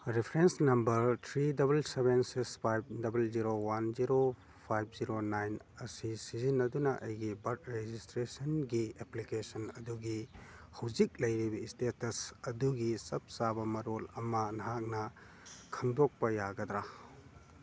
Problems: none marked